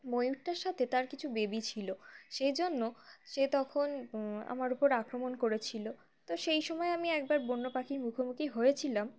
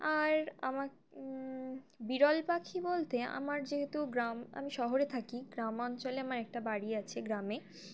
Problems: none marked